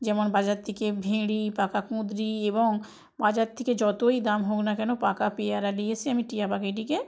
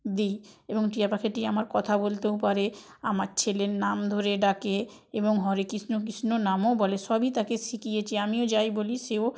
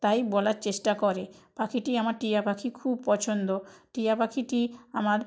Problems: background sounds at intervals, background conversations at intervals